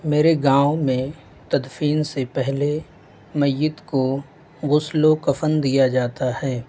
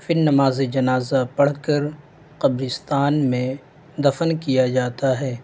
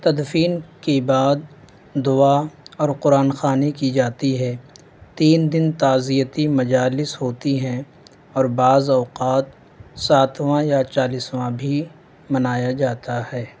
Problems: constant background noise